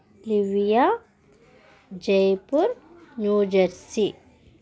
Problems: none marked